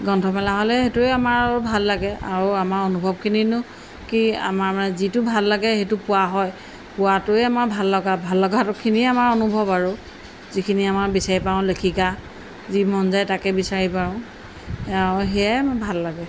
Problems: constant background noise